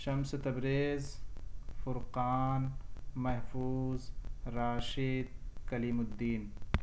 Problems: none marked